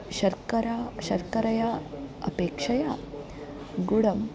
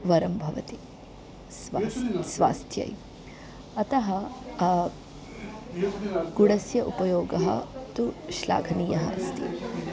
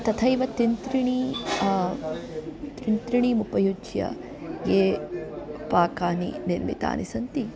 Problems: continuous background conversations